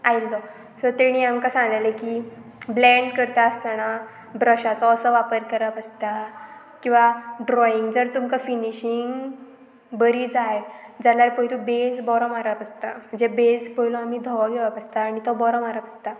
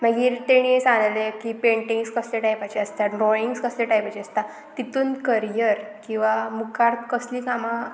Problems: none marked